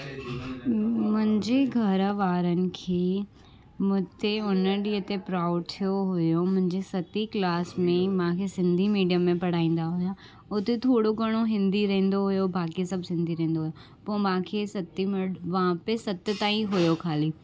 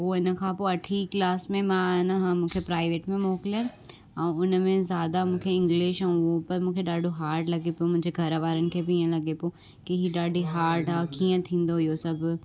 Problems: constant background noise